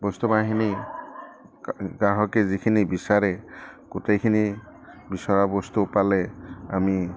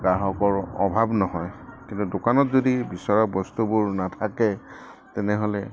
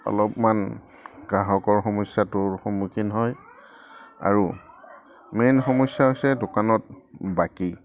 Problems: background sounds at intervals